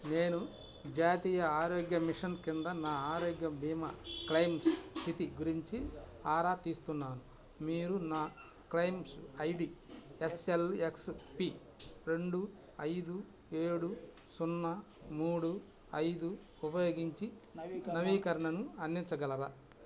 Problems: constant background noise